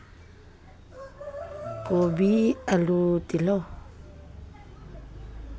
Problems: background sounds at intervals, background conversations at intervals